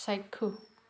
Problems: constant background noise, background conversations at intervals